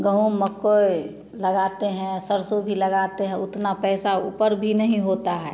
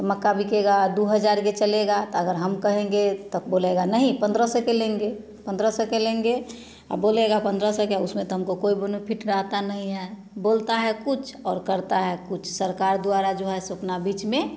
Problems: none marked